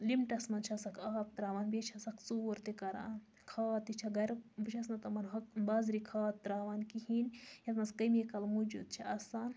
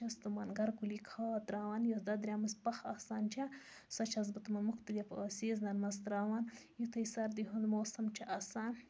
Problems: constant background noise